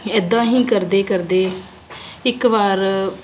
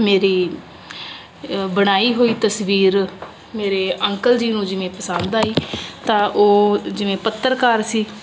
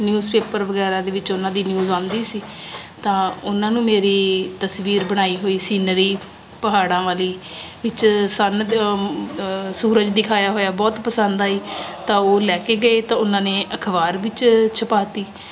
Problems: constant background noise